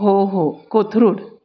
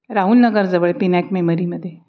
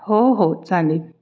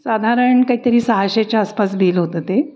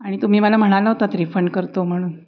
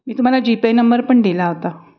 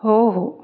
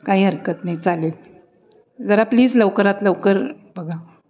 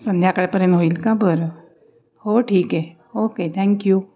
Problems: background sounds at intervals, background conversations at intervals